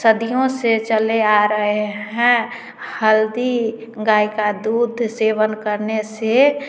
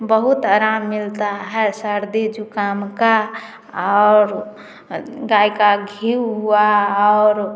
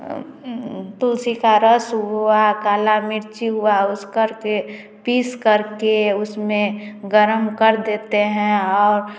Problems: background sounds at intervals, continuous background conversations, echo